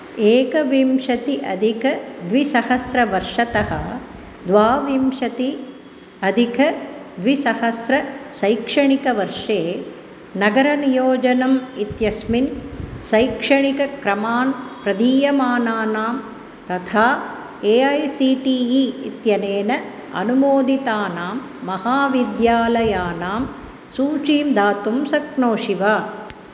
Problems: constant background noise